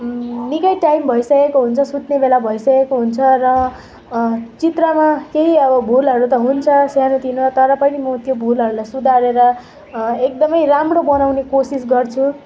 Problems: constant background noise, continuous background conversations